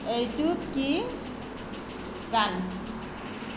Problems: constant background noise